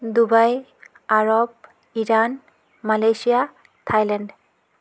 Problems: background sounds at intervals